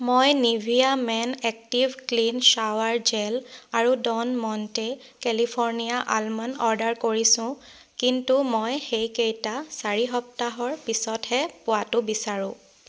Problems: none marked